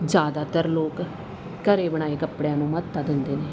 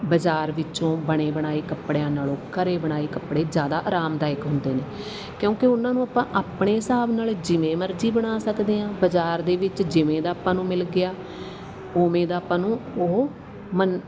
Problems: background conversations at intervals